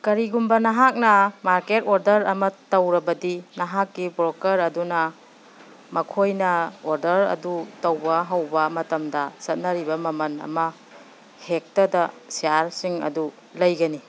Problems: background sounds at intervals